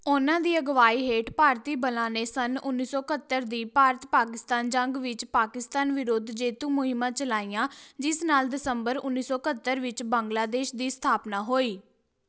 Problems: none marked